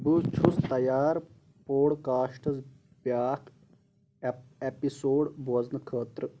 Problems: background sounds at intervals